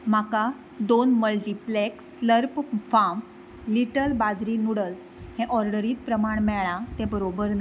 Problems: background sounds at intervals